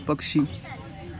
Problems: constant background noise, continuous background conversations